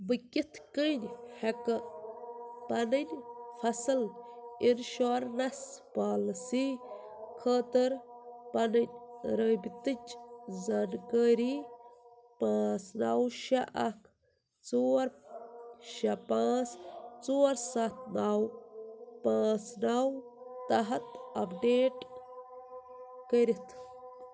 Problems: constant background noise